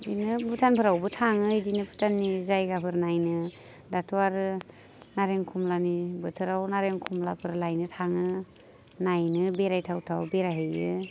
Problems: none marked